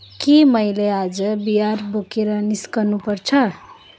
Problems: background sounds at intervals